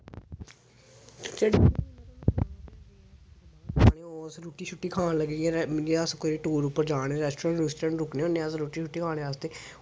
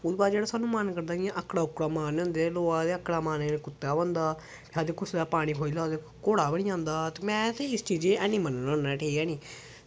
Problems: background sounds at intervals